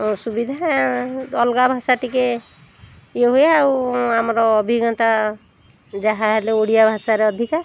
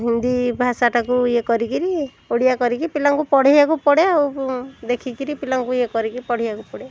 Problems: constant background noise